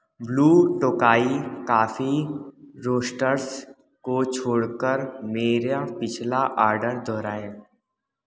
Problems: none marked